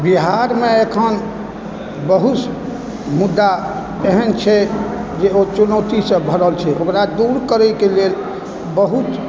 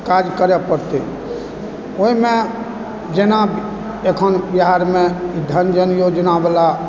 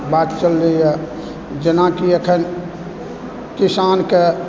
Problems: background sounds at intervals, background conversations at intervals